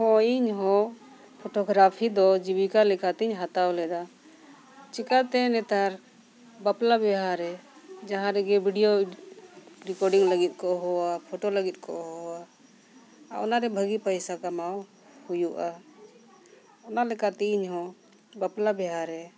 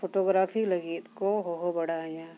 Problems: background sounds at intervals